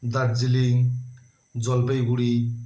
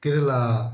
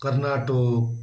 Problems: constant background noise